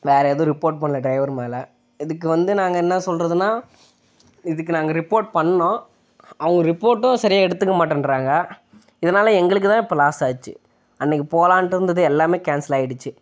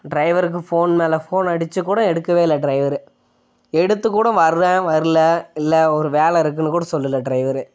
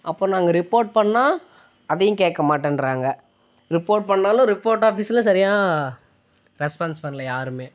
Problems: none marked